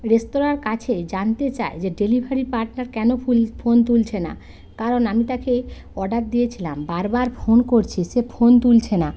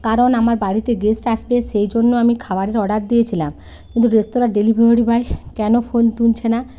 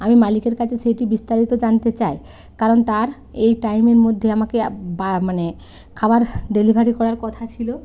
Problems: none marked